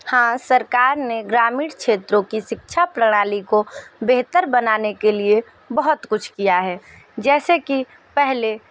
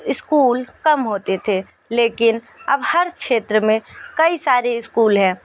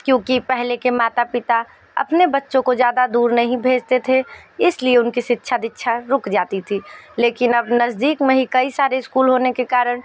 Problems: background sounds at intervals